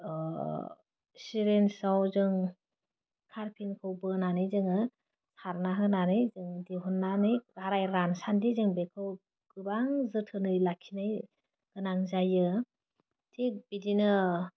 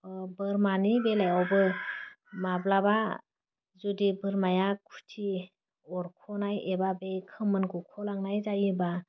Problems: none marked